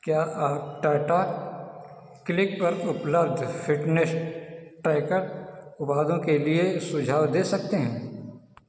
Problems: none marked